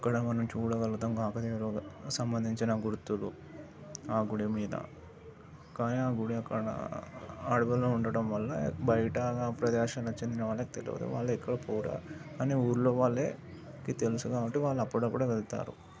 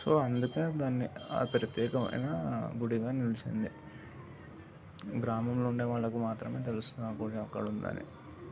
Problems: background sounds at intervals, continuous background conversations, low volume